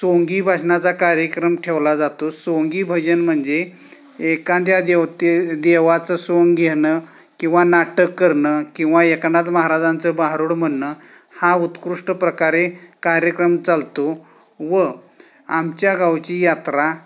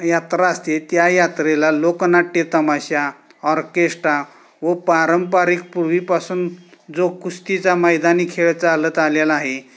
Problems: none marked